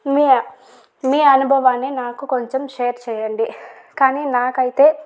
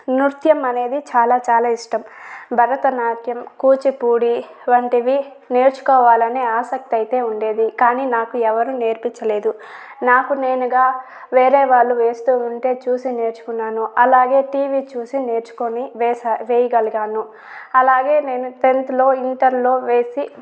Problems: none marked